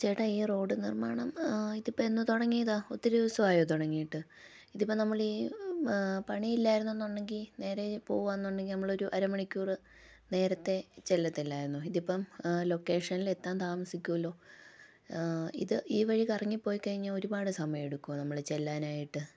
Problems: low volume